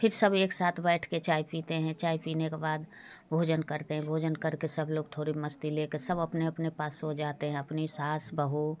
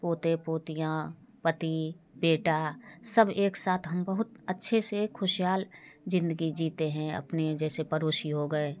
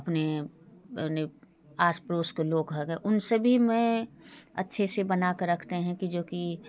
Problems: constant background noise, continuous background conversations